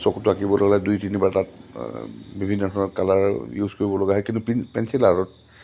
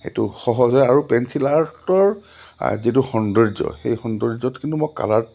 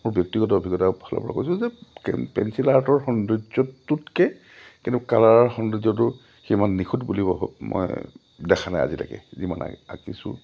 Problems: low volume